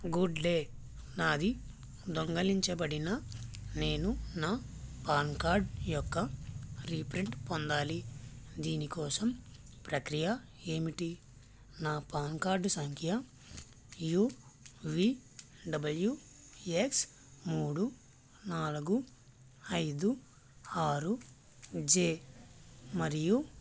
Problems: constant background noise, low volume